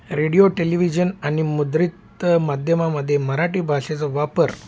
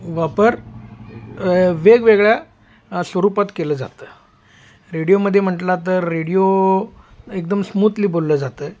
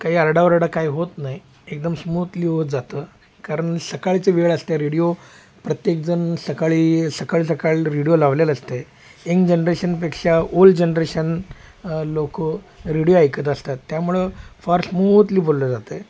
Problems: none marked